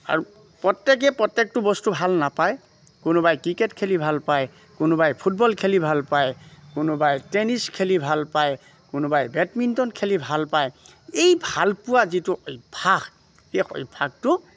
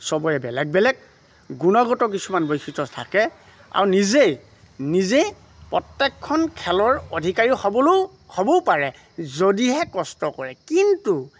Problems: background sounds at intervals